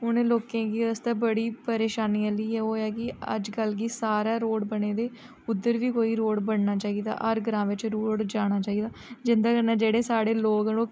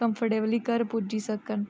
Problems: low volume